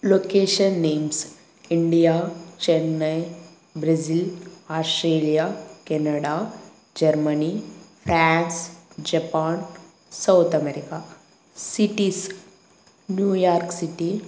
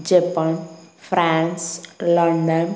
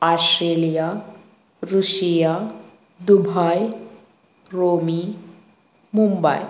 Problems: none marked